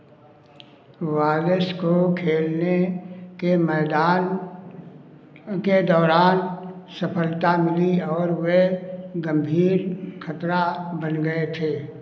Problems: constant background noise